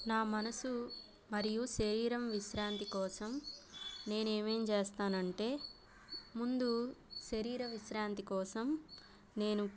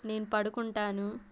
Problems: constant background noise